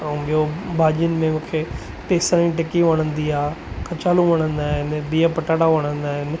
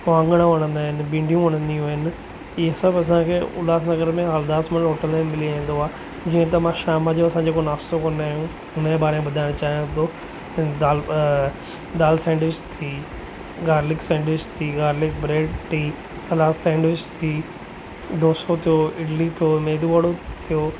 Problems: constant background noise